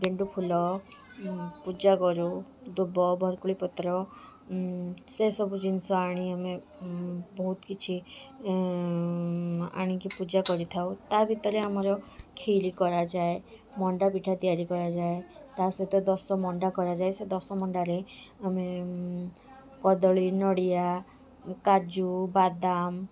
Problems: constant background noise, continuous background conversations